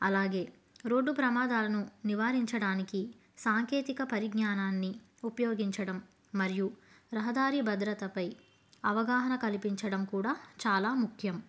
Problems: none marked